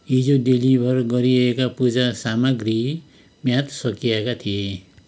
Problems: none marked